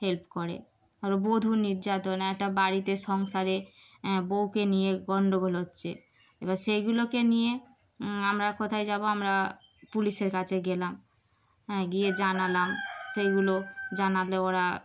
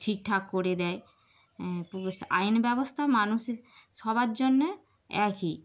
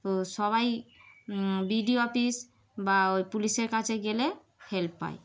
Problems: background sounds at intervals